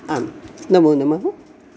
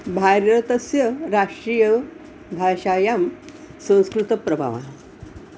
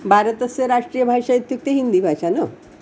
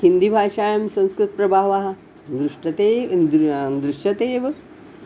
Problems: background sounds at intervals